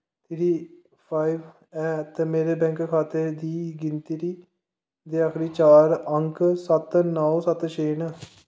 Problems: echo, low volume